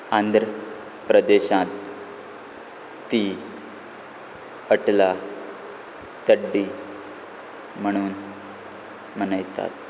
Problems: none marked